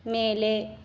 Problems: none marked